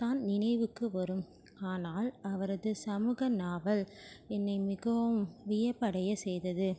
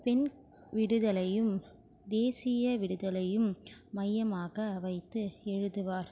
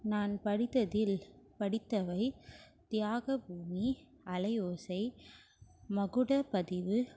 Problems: constant background noise